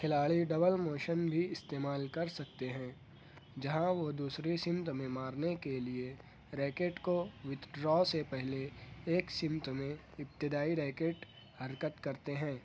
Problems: none marked